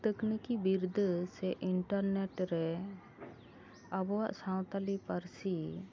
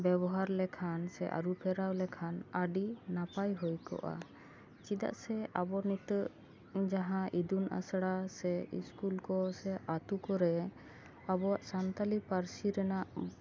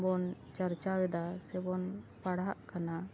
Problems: background sounds at intervals